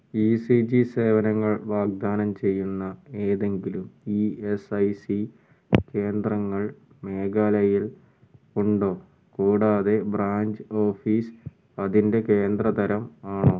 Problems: low volume